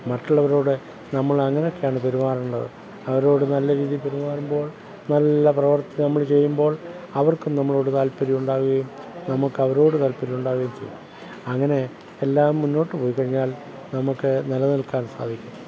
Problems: background sounds at intervals